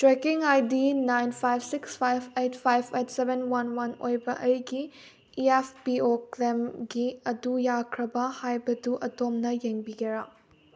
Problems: background conversations at intervals